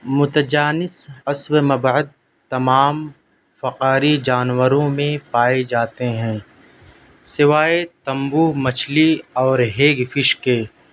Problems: none marked